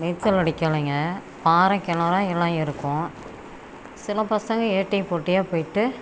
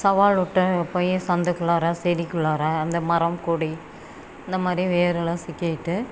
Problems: constant background noise